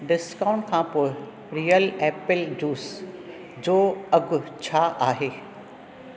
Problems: none marked